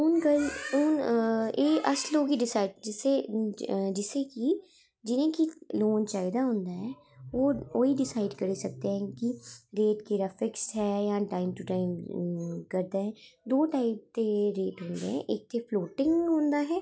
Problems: none marked